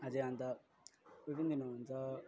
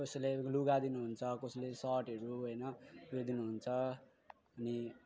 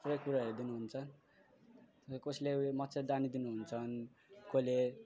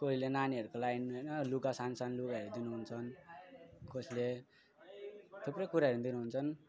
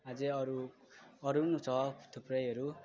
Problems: none marked